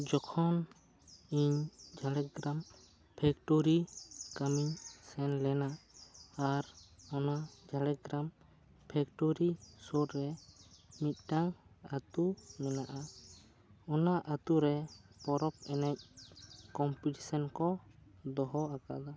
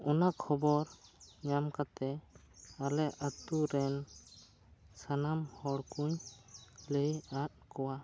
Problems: low volume